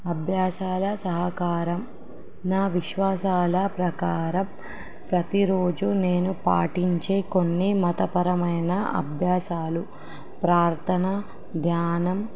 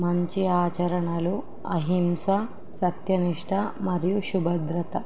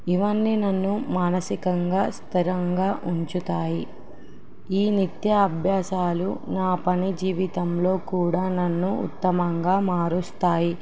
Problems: background sounds at intervals